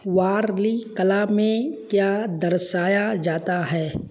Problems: none marked